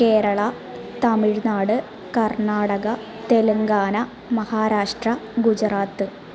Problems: constant background noise